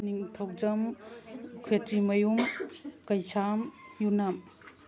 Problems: background sounds at intervals